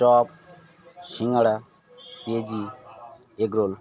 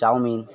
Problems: constant background noise, background conversations at intervals